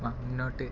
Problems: low volume